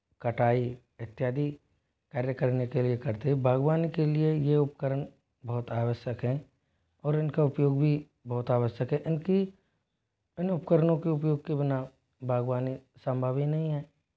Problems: constant background noise